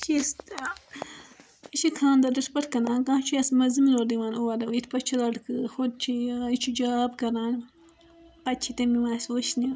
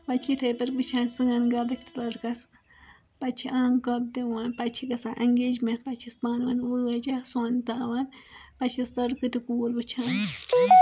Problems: background sounds at intervals